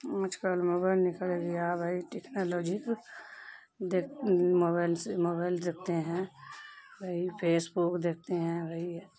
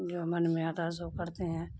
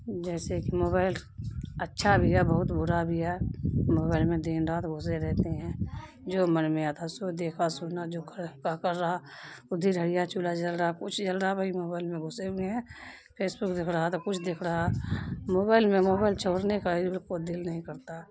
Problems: background sounds at intervals